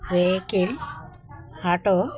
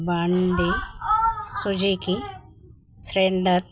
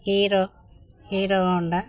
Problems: constant background noise